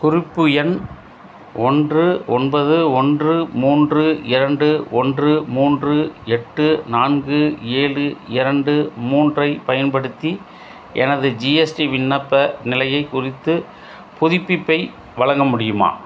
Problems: none marked